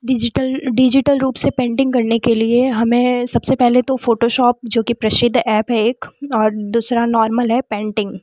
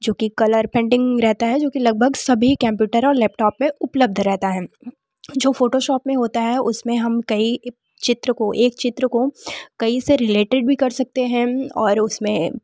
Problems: background sounds at intervals